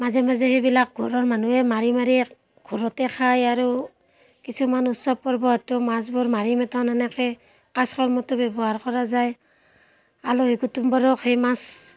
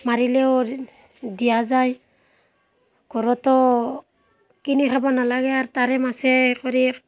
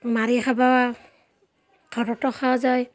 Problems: constant background noise, background conversations at intervals